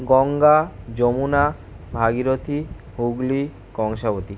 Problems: constant background noise